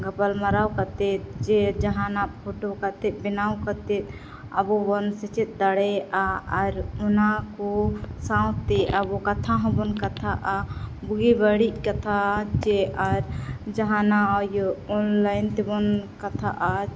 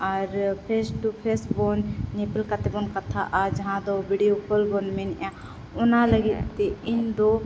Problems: background sounds at intervals